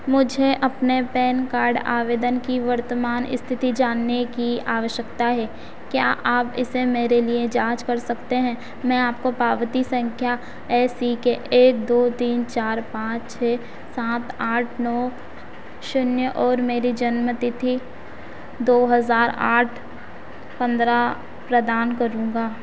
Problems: constant background noise